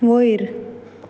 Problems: background sounds at intervals